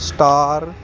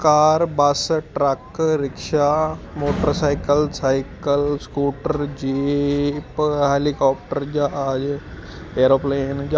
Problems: constant background noise